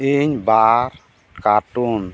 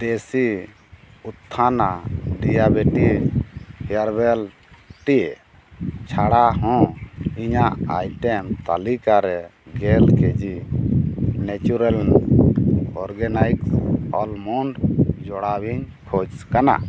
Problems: background sounds at intervals